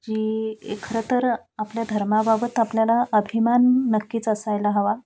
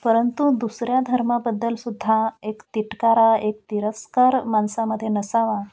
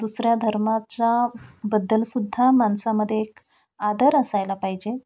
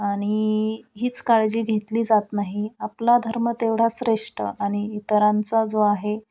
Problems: constant background noise, background conversations at intervals